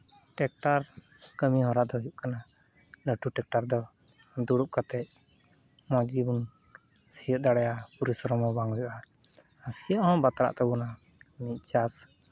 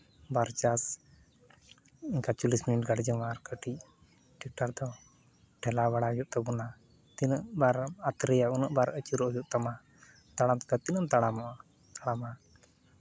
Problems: background sounds at intervals